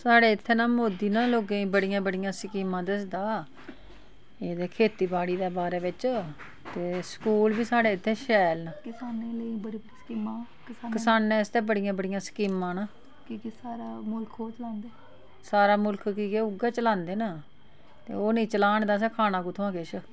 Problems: none marked